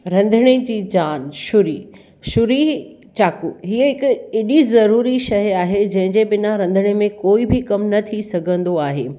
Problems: none marked